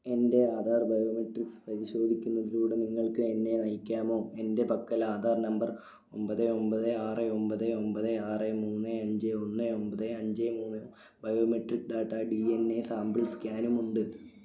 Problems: none marked